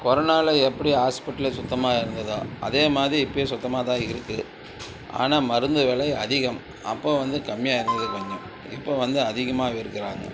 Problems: constant background noise